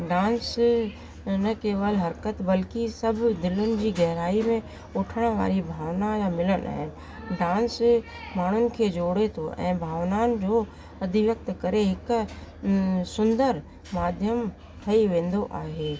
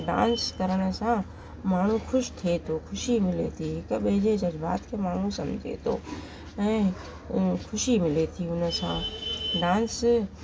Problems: constant background noise